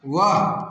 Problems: none marked